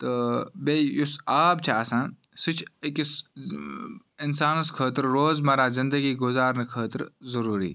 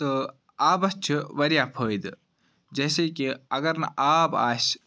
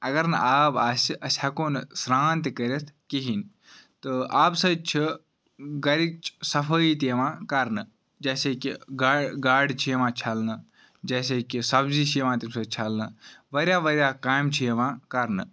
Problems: background sounds at intervals